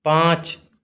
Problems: none marked